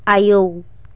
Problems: constant background noise